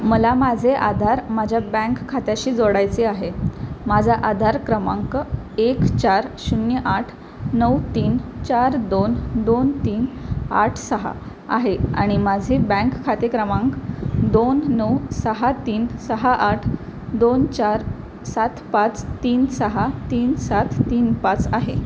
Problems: constant background noise